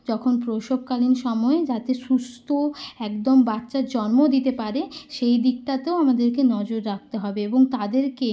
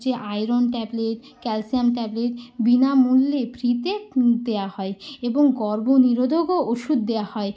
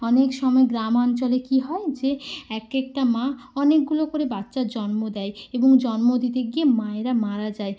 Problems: constant background noise